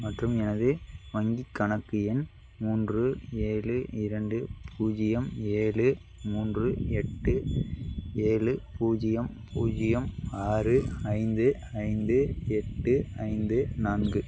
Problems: background sounds at intervals